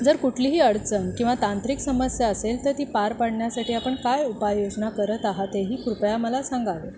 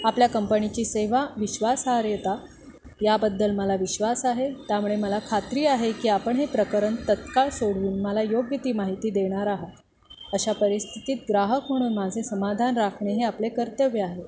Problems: constant background noise